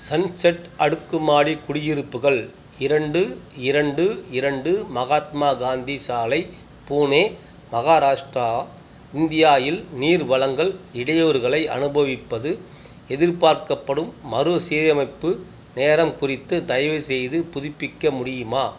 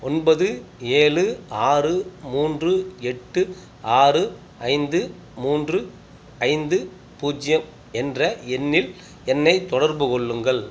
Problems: none marked